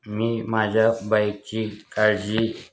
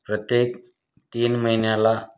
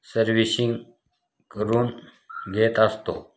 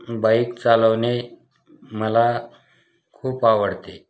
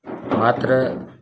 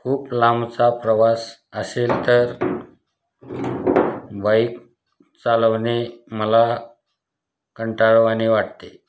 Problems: none marked